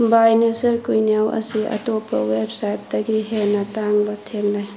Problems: background sounds at intervals